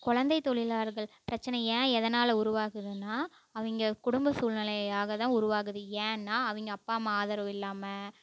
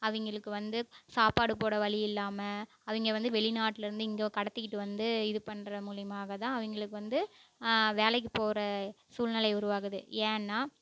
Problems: none marked